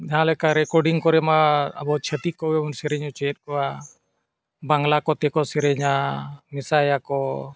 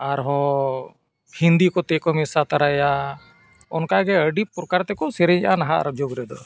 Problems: background sounds at intervals